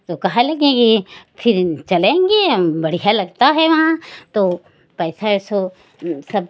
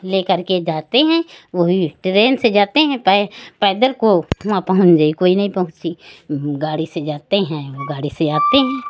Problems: none marked